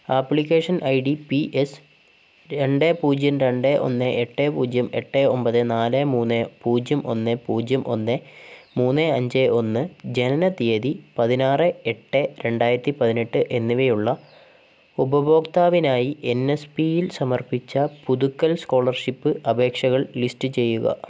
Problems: constant background noise